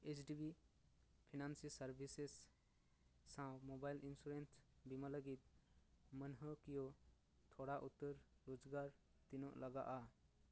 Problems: low volume